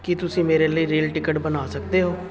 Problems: constant background noise